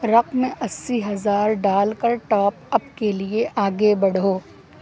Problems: constant background noise